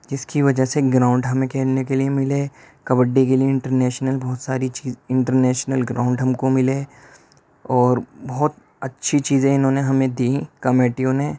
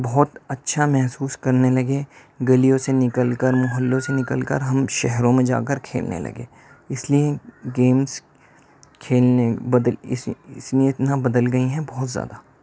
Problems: none marked